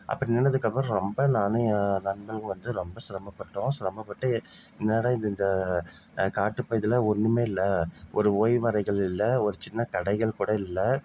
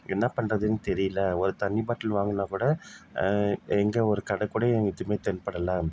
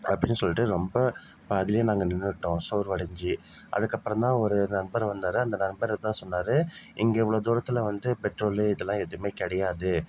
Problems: none marked